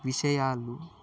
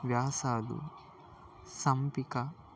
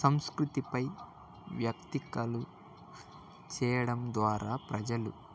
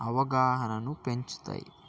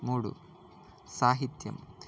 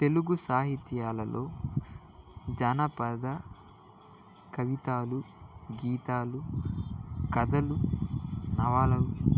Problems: background conversations at intervals